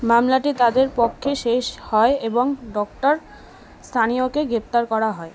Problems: constant background noise, background conversations at intervals